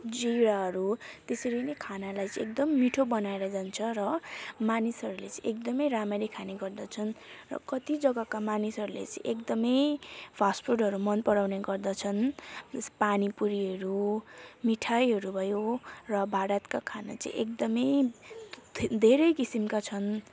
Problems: constant background noise, background conversations at intervals